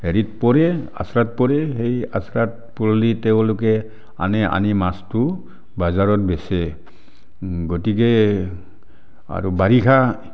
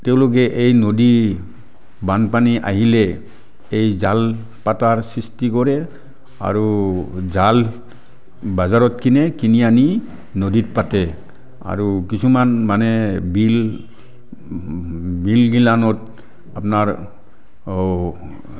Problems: background sounds at intervals